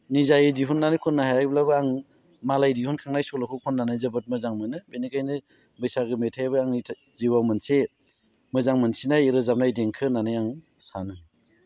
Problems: none marked